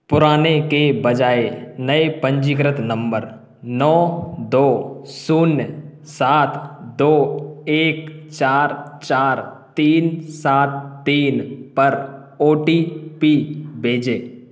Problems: none marked